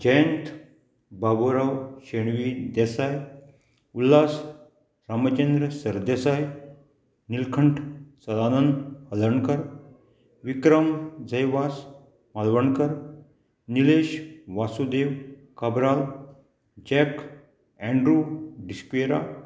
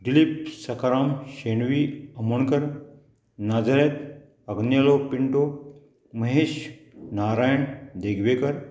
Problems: none marked